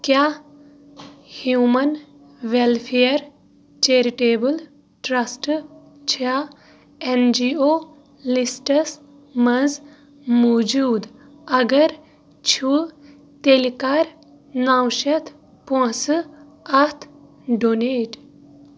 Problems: none marked